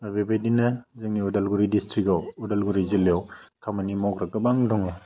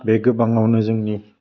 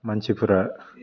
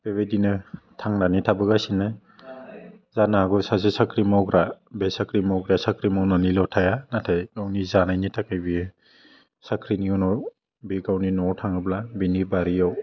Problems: constant background noise